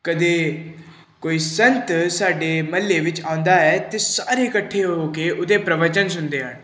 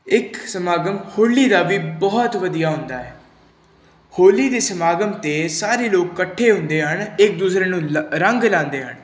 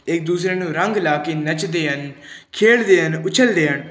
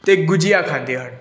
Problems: background sounds at intervals